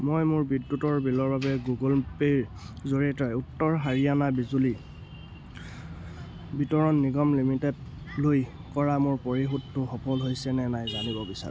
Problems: none marked